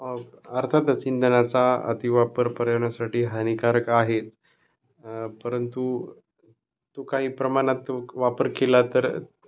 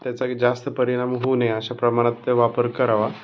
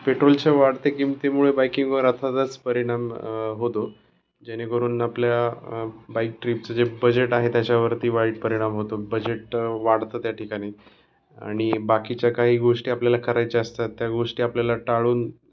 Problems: none marked